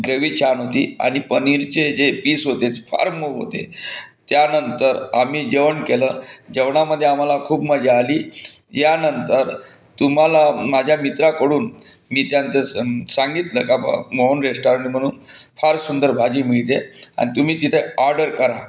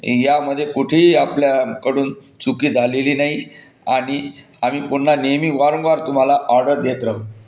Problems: constant background noise